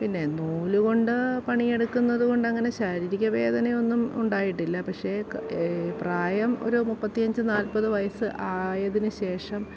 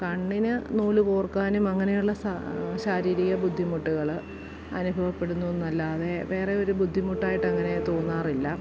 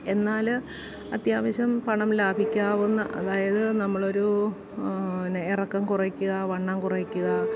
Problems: background sounds at intervals